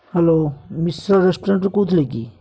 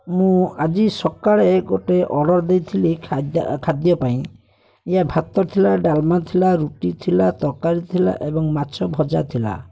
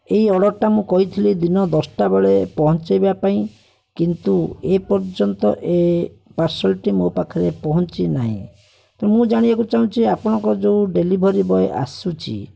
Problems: constant background noise, continuous background conversations